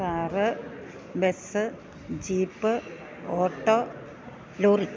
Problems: none marked